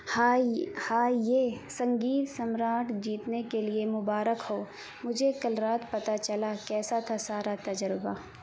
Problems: constant background noise